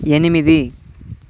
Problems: constant background noise